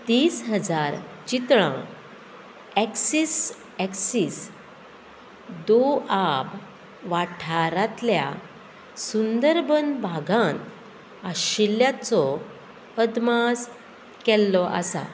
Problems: constant background noise